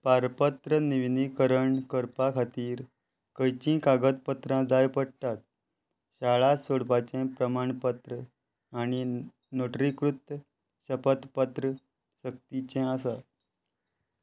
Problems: constant background noise